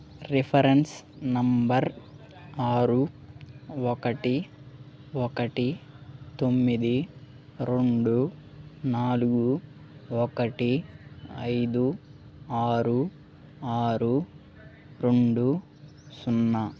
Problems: background sounds at intervals, background conversations at intervals